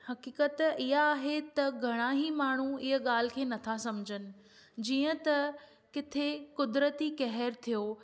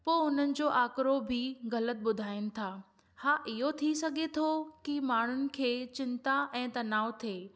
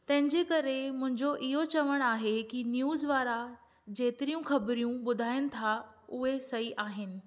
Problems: none marked